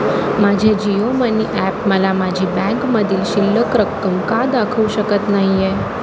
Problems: constant background noise